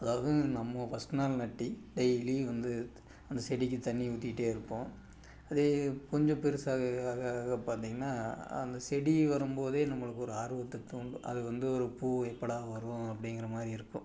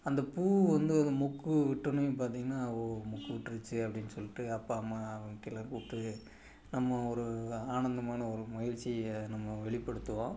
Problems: background sounds at intervals